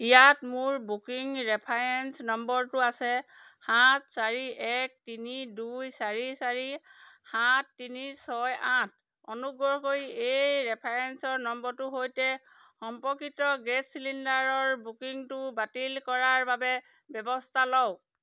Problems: background sounds at intervals